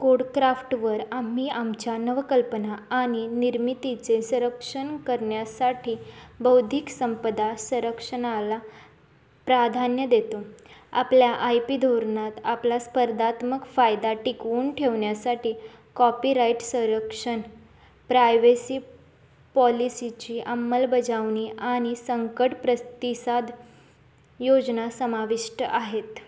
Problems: none marked